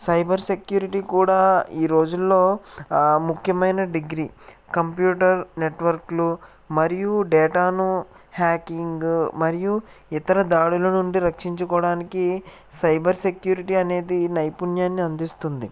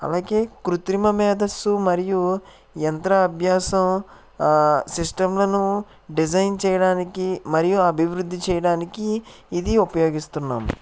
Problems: none marked